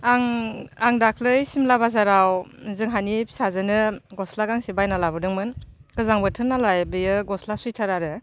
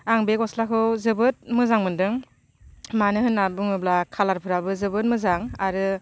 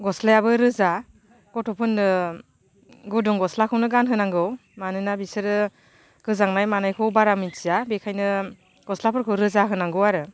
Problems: none marked